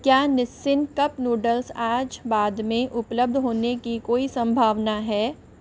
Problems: constant background noise